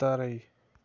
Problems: constant background noise